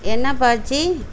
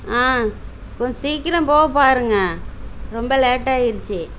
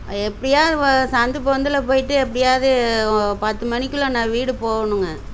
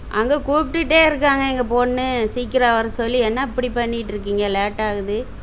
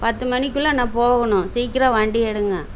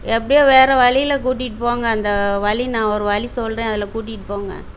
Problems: background sounds at intervals